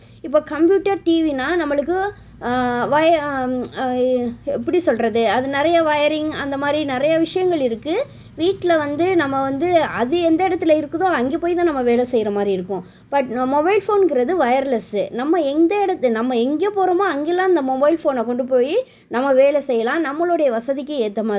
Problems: none marked